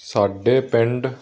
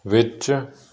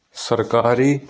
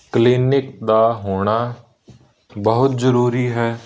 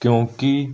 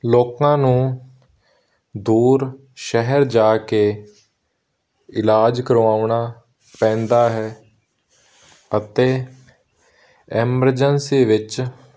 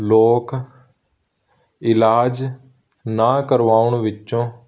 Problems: none marked